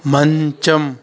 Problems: continuous background conversations